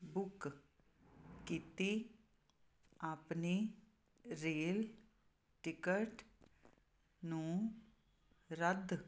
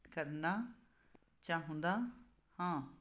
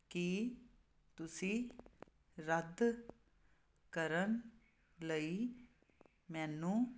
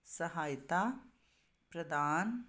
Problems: constant background noise